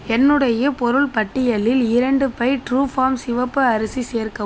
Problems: constant background noise